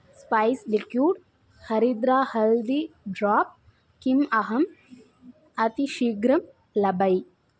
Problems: constant background noise